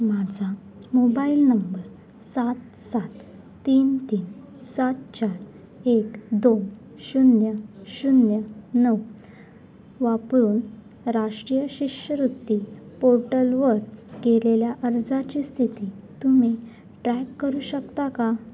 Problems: none marked